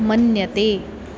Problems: none marked